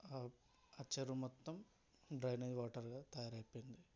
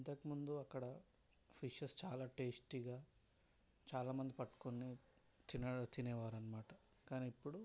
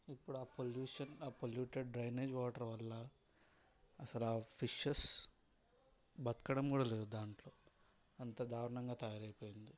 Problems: background sounds at intervals, low volume